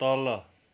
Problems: none marked